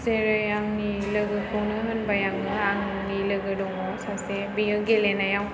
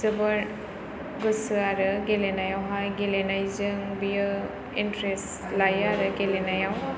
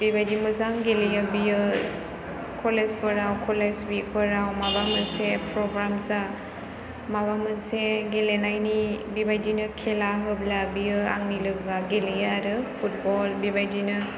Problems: constant background noise